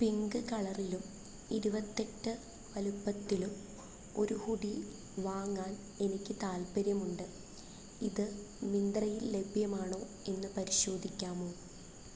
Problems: low volume